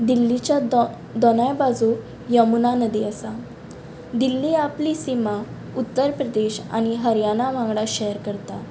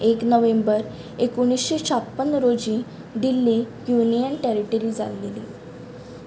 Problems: constant background noise